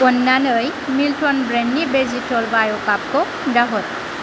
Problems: constant background noise